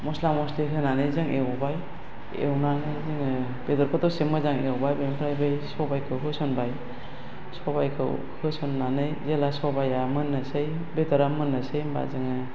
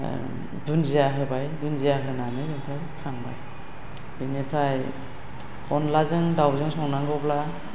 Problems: constant background noise